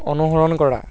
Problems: none marked